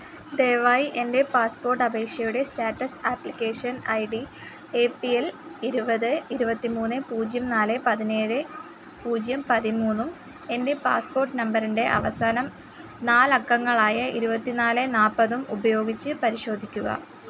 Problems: constant background noise